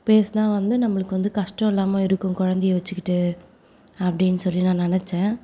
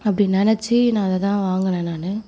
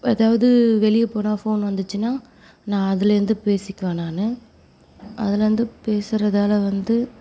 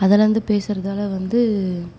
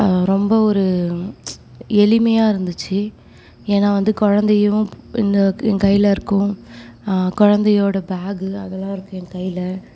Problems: none marked